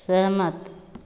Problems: constant background noise, echo